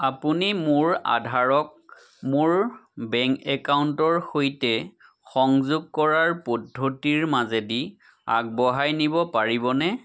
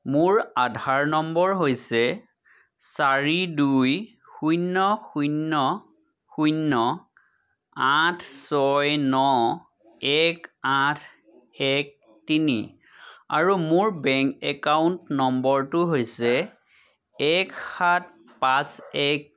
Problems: none marked